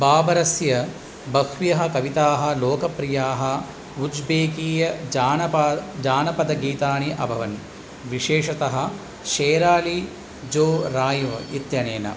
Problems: none marked